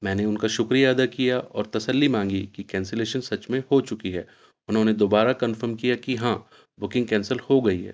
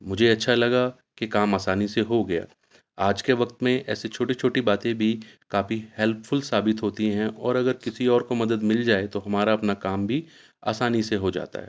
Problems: constant background noise